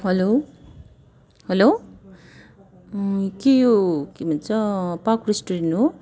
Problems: constant background noise